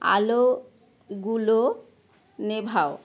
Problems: none marked